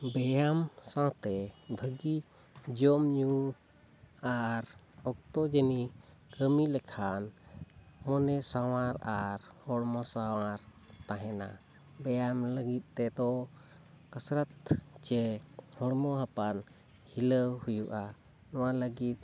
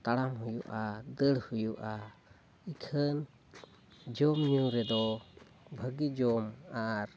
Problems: constant background noise